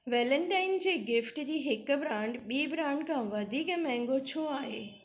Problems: none marked